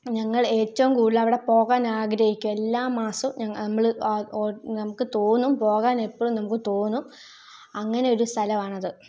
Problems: low volume